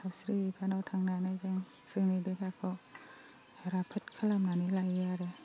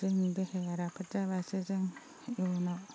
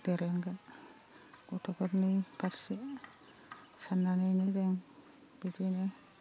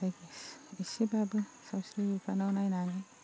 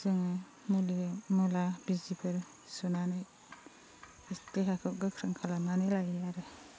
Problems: constant background noise, low volume